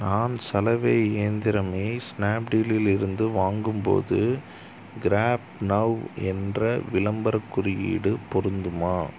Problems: none marked